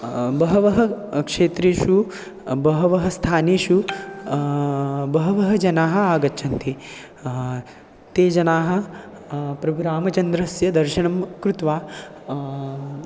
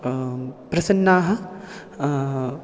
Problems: none marked